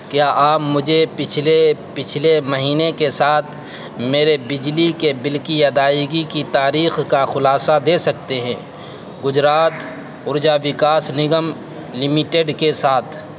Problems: constant background noise